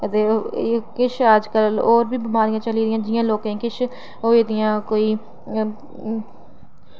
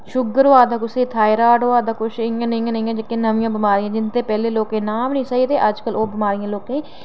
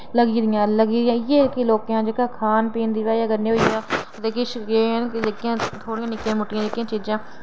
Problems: none marked